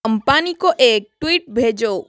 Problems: constant background noise